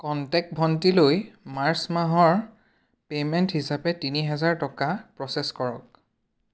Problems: none marked